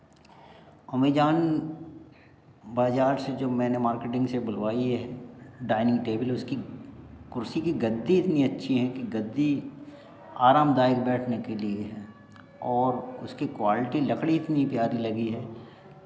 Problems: none marked